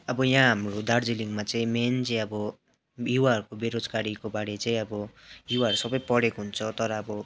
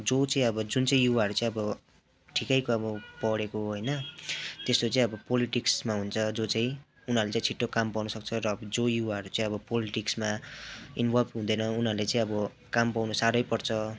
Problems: none marked